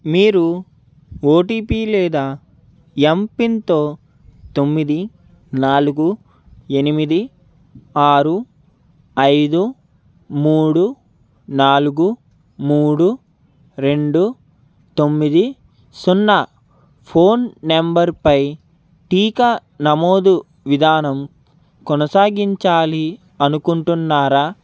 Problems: constant background noise